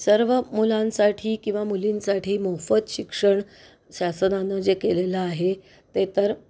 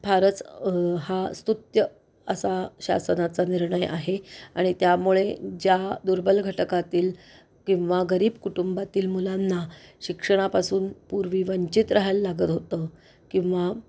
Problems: none marked